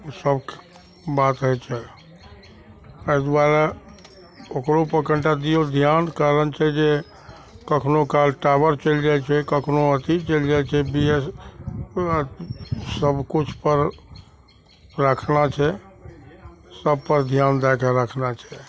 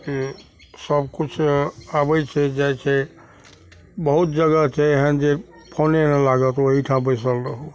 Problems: none marked